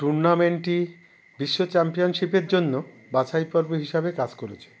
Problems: background sounds at intervals